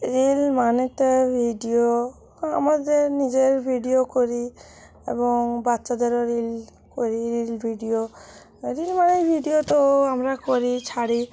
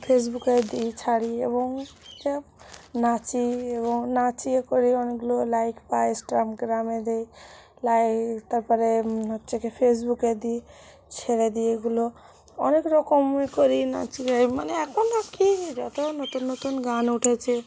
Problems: constant background noise, background conversations at intervals